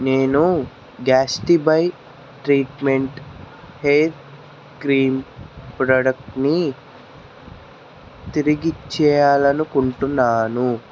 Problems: constant background noise